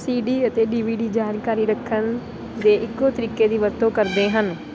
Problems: constant background noise